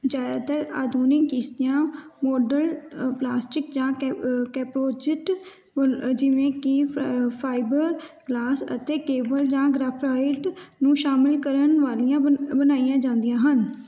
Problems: background sounds at intervals